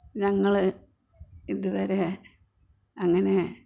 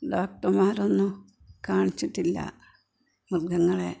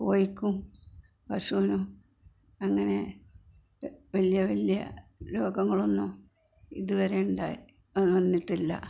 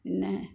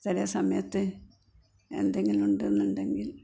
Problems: constant background noise, low volume